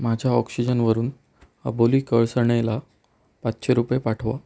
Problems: none marked